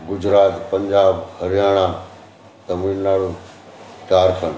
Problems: constant background noise, echo